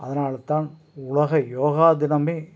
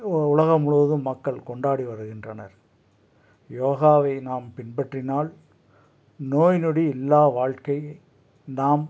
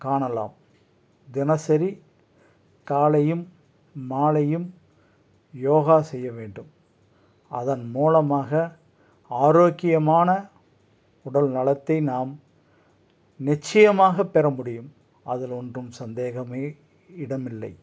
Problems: none marked